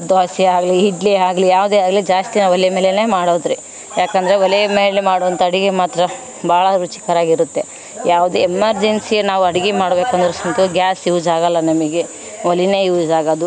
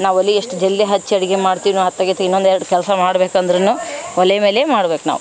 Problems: none marked